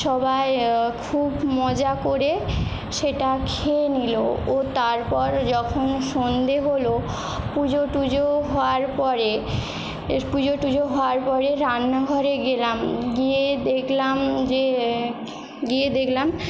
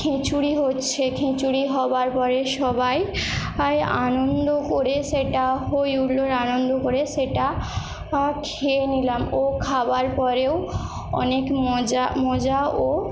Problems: constant background noise